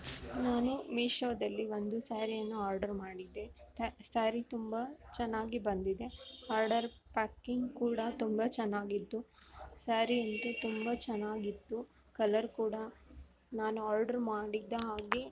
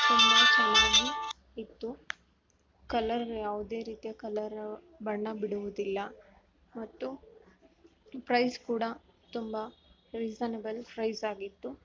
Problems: background sounds at intervals